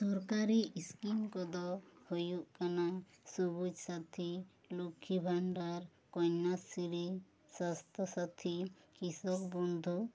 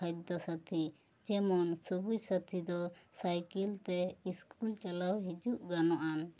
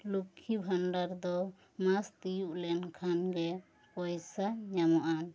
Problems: none marked